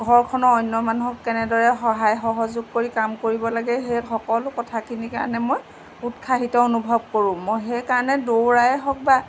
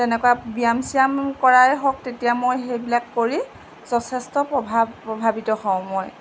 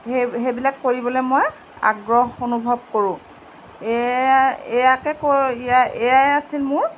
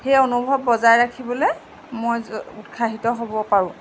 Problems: constant background noise